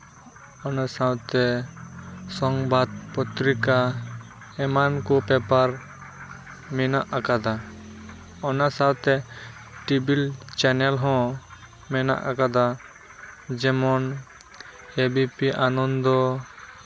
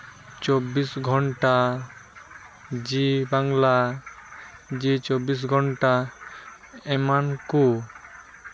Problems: constant background noise, background conversations at intervals